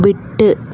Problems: constant background noise